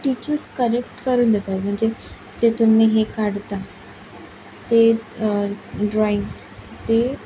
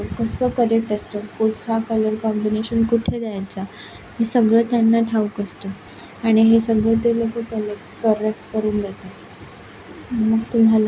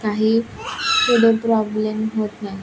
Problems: none marked